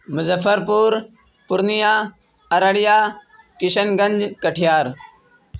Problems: none marked